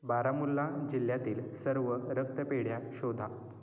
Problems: none marked